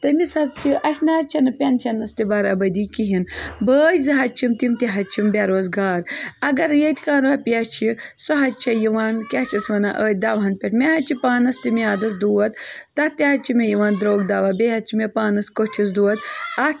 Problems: continuous background conversations